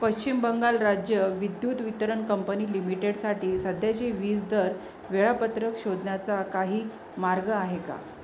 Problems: constant background noise, continuous background conversations